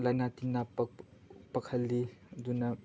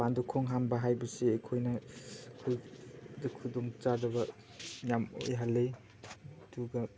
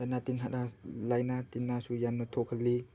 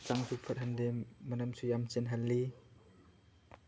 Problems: background sounds at intervals